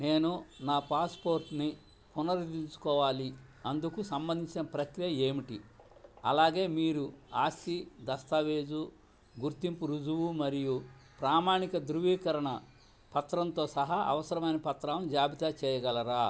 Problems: low volume